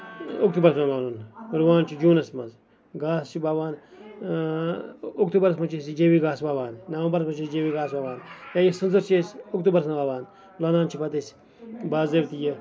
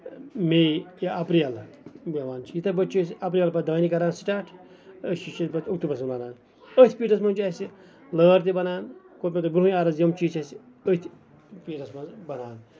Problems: background sounds at intervals, background conversations at intervals